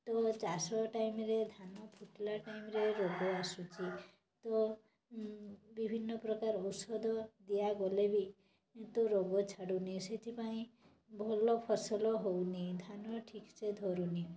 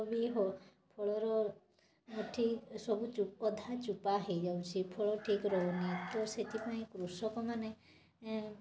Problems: constant background noise